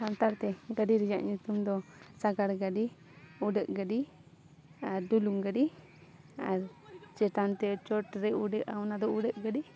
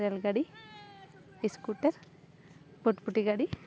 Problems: continuous background conversations